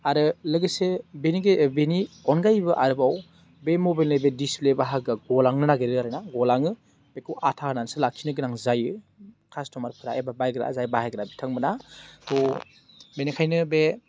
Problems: low volume